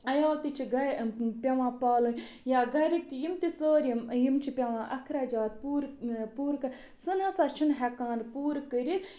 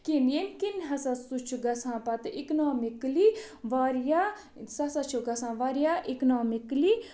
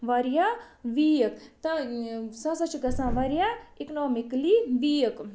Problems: none marked